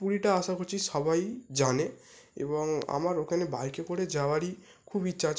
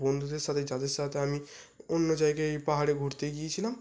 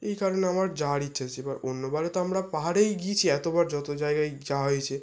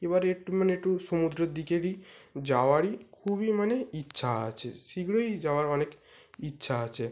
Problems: none marked